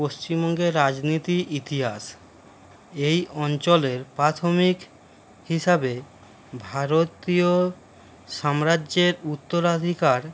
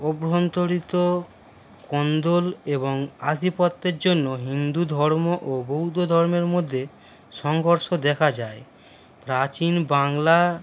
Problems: none marked